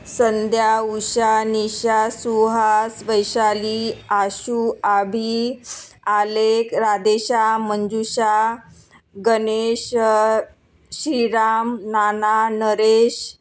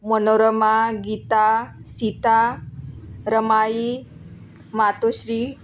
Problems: none marked